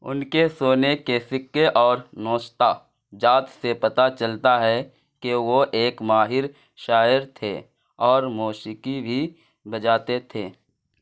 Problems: none marked